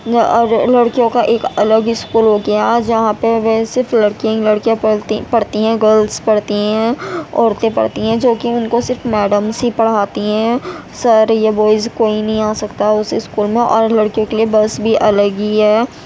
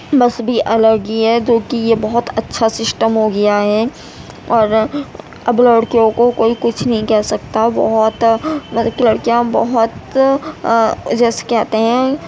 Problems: constant background noise